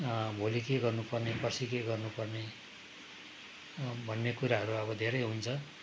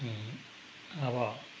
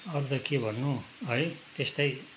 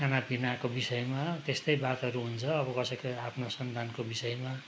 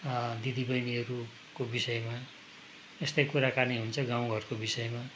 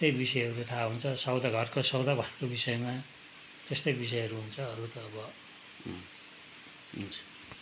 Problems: background sounds at intervals